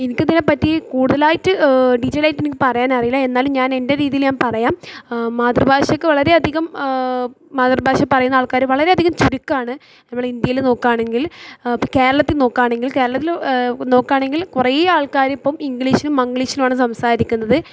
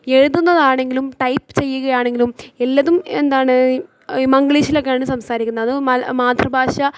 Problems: low volume